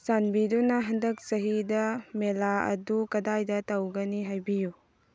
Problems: none marked